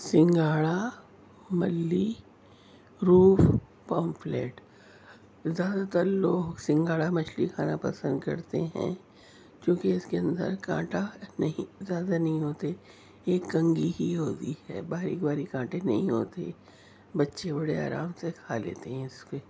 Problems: none marked